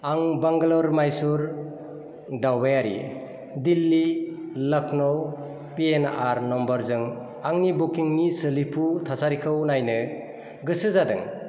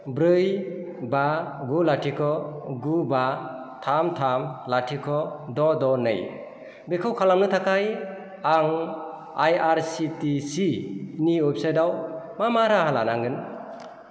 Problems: constant background noise